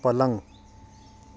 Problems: constant background noise